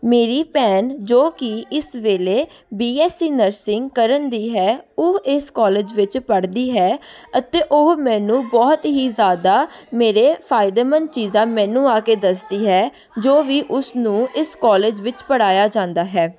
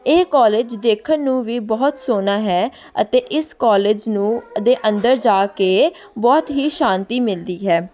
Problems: continuous background conversations